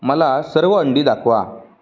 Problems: none marked